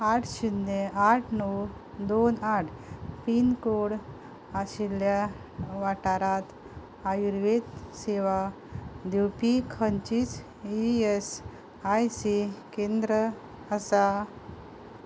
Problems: none marked